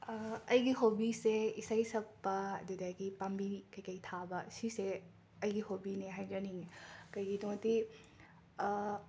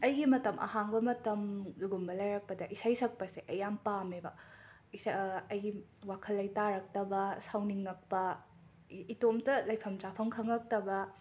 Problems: none marked